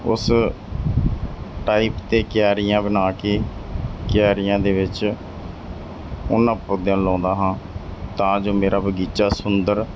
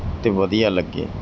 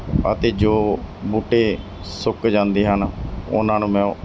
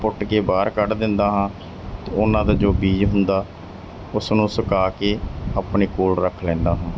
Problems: none marked